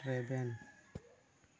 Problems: low volume